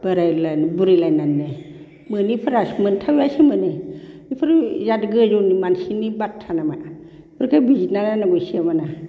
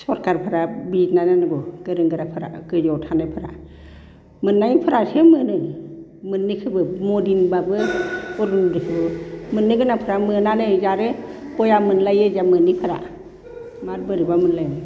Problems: constant background noise